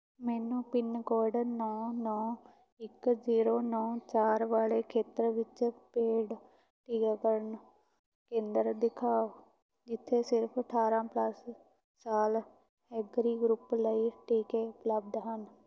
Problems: none marked